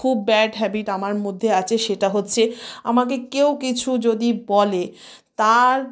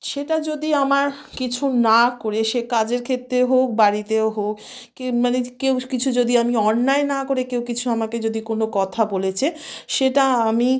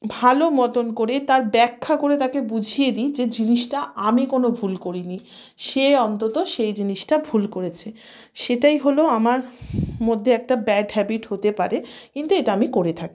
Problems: background sounds at intervals